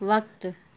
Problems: none marked